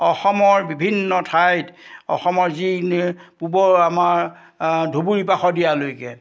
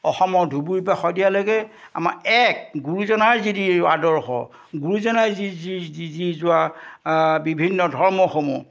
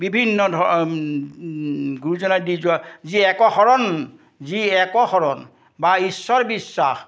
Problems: none marked